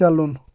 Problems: none marked